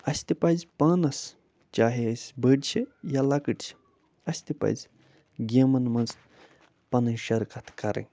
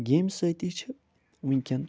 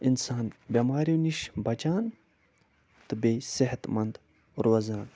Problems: none marked